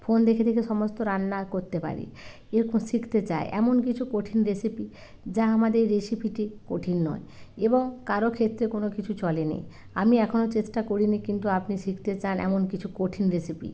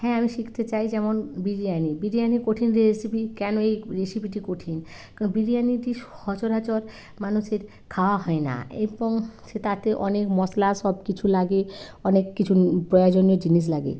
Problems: none marked